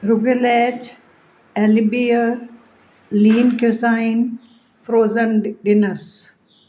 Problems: background sounds at intervals